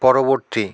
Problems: constant background noise